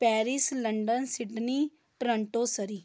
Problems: none marked